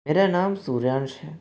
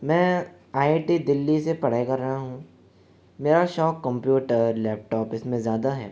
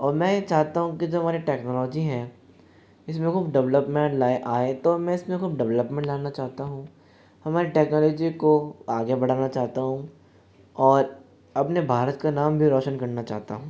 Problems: constant background noise, continuous background conversations